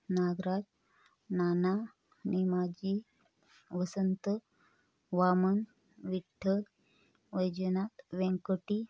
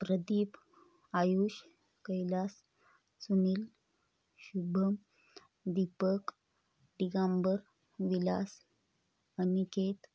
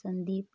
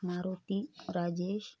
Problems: constant background noise